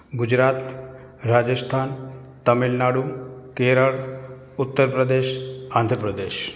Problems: constant background noise